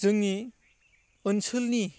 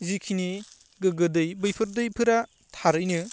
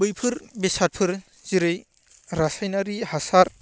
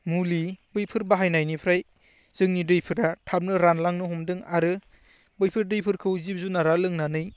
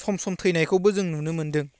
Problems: none marked